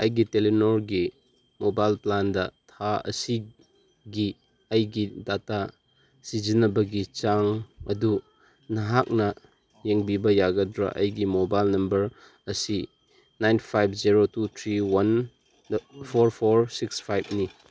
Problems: constant background noise